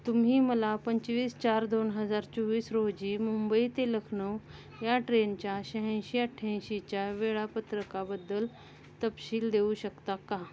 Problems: constant background noise, continuous background conversations